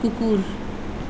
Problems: background sounds at intervals